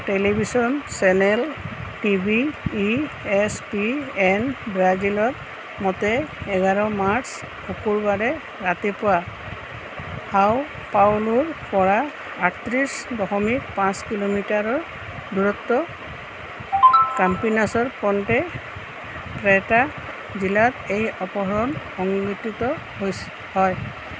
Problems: constant background noise